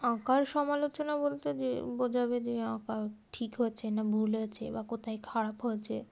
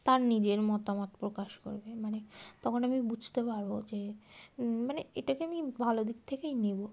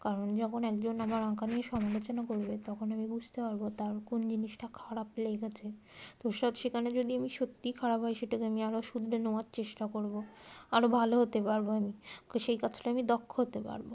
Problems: constant background noise